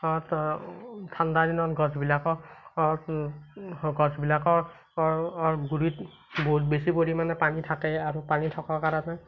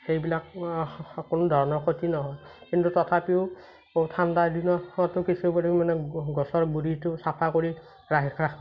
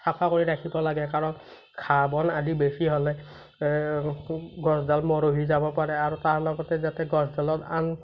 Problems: none marked